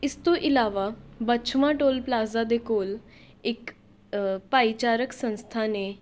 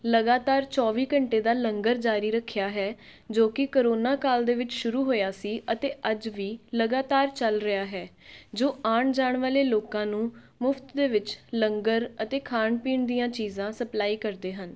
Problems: none marked